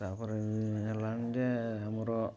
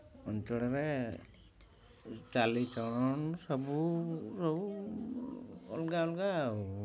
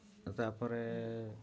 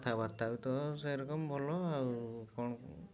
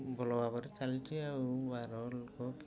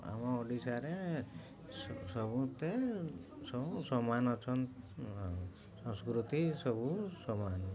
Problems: low volume